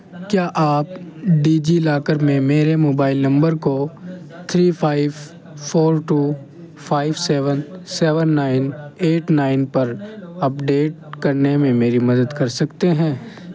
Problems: constant background noise